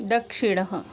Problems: constant background noise